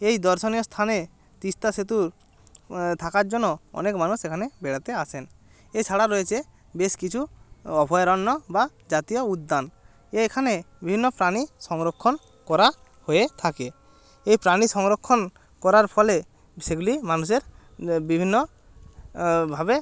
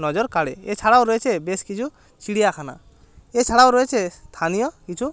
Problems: background sounds at intervals